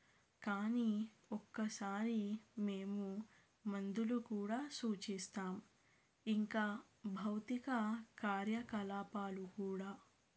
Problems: low volume